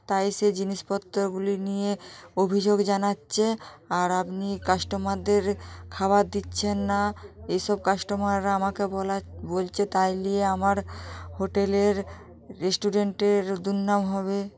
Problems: continuous background conversations